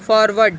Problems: constant background noise